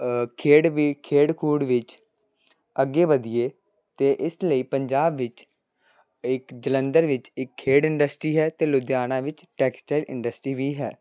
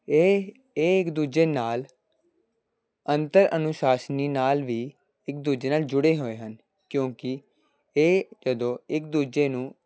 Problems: background sounds at intervals